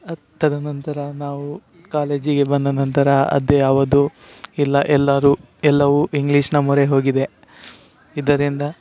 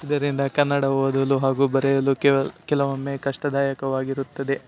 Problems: none marked